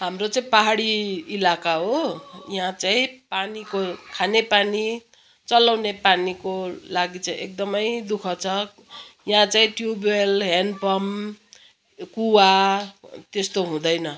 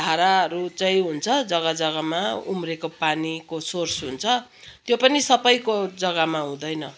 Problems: background sounds at intervals, background conversations at intervals